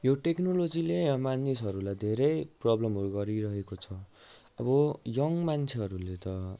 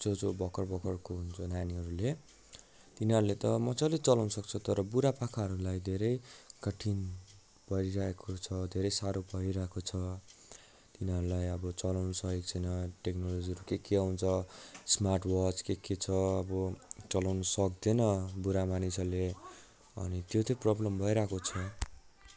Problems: continuous background conversations